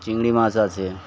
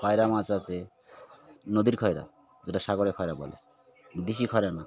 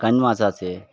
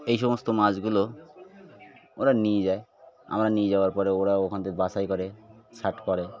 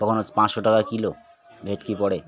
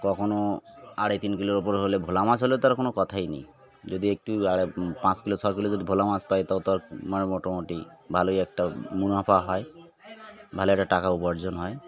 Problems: constant background noise, continuous background conversations